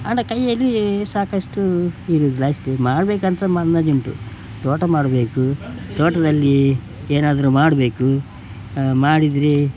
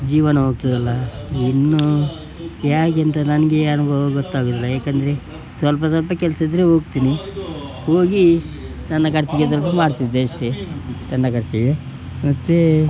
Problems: background sounds at intervals